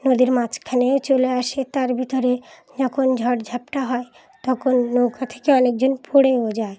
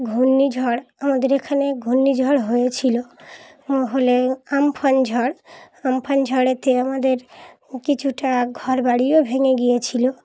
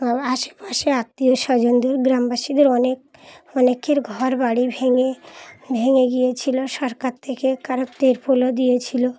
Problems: background sounds at intervals, background conversations at intervals